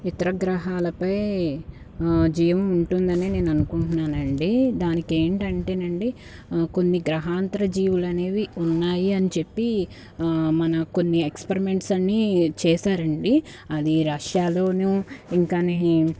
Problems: background sounds at intervals